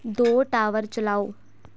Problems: constant background noise